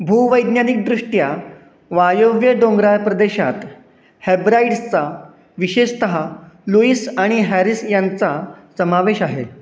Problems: none marked